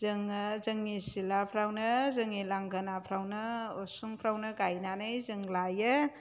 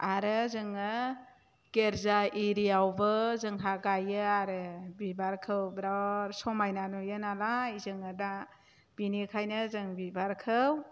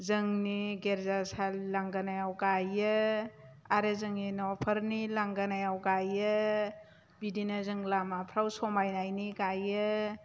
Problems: none marked